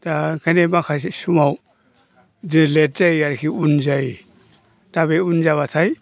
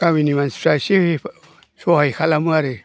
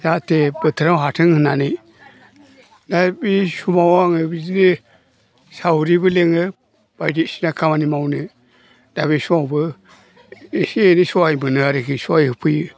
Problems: low volume